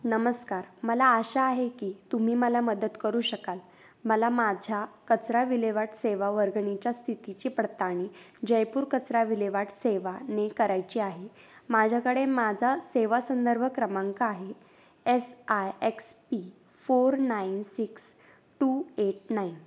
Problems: constant background noise